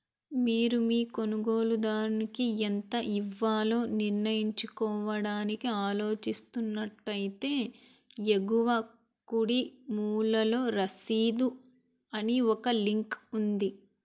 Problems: none marked